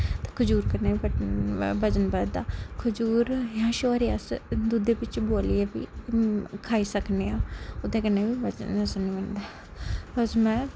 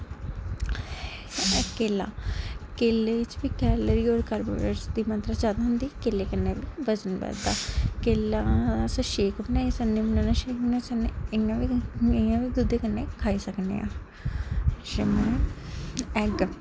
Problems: constant background noise, echo